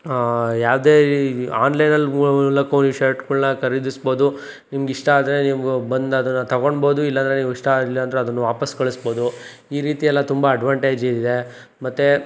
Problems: none marked